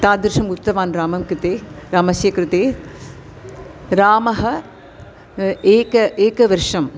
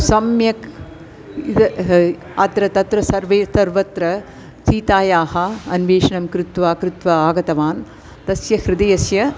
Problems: constant background noise